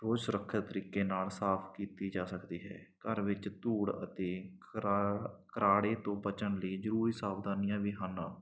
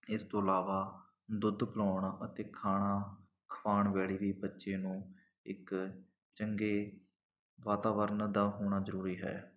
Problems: none marked